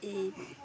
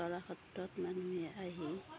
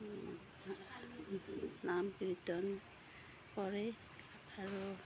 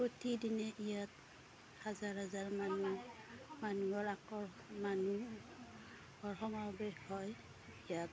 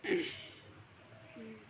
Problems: background sounds at intervals, background conversations at intervals